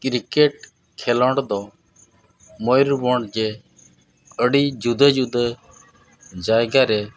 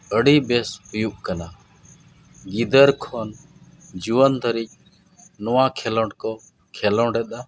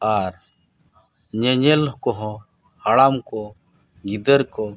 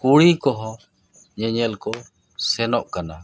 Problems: none marked